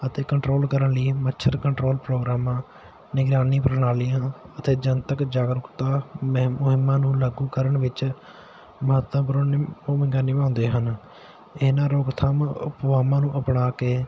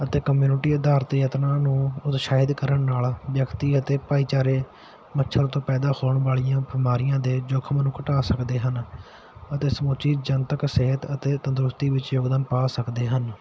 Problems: background sounds at intervals